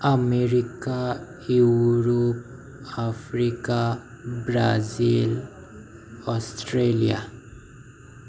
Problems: background sounds at intervals